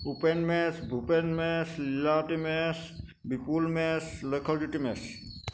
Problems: constant background noise